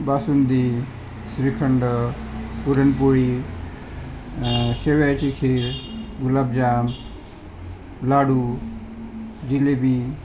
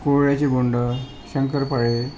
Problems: constant background noise